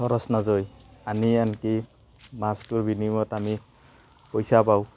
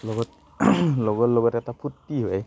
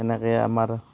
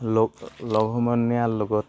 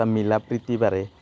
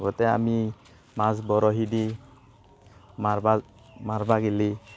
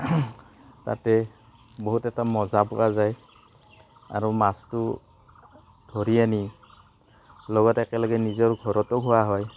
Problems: constant background noise